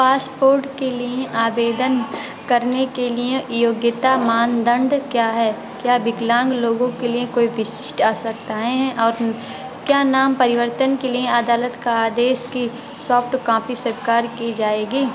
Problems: constant background noise